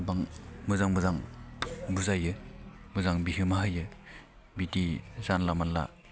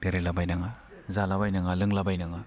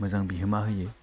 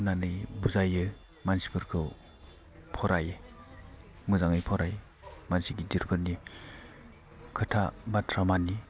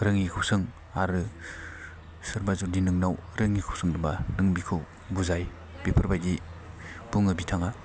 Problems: none marked